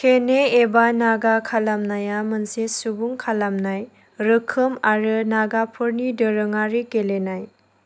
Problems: none marked